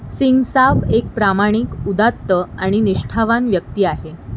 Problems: none marked